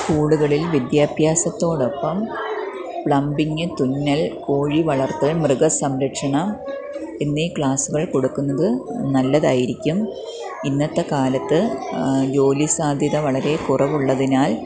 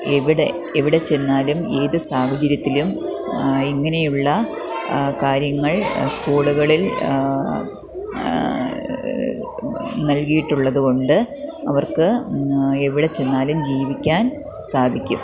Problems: continuous background conversations